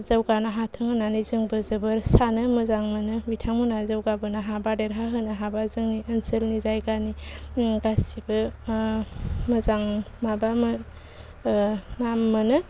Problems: low volume